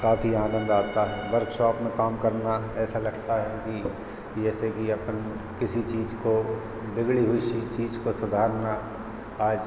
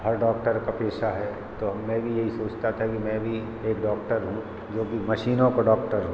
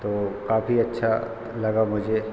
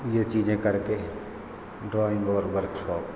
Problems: none marked